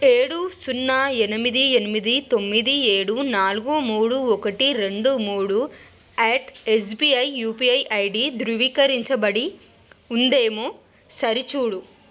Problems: constant background noise